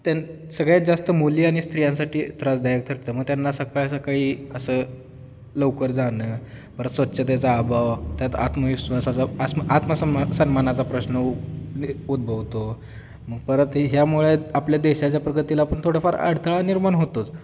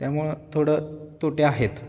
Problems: none marked